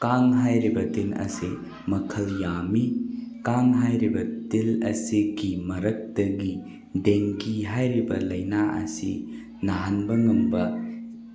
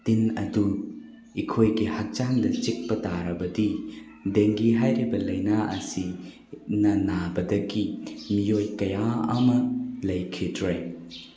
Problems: constant background noise